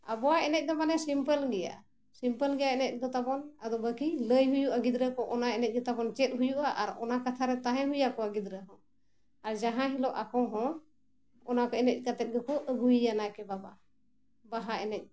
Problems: none marked